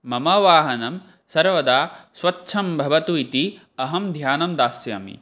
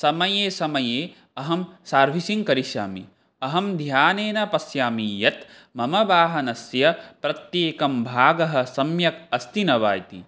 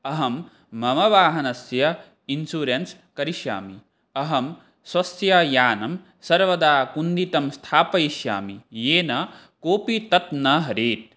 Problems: none marked